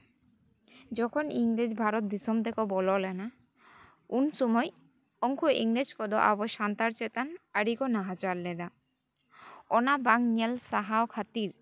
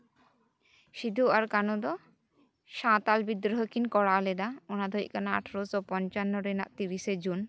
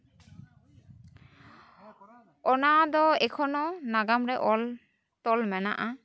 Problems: none marked